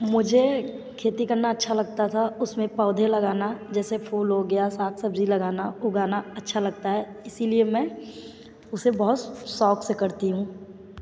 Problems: none marked